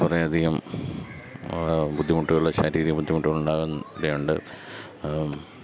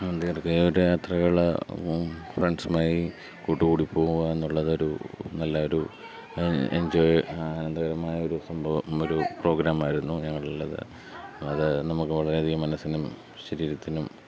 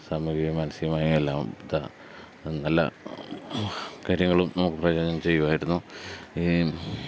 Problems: none marked